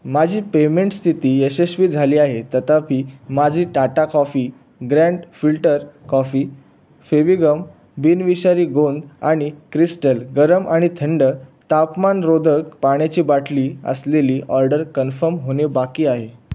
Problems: background sounds at intervals